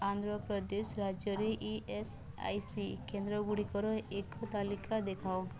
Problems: low volume